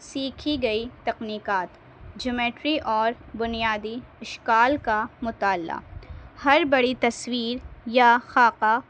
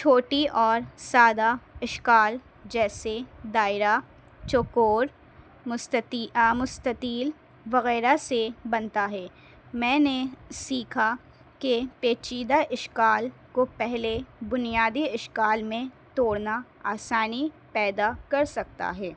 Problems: constant background noise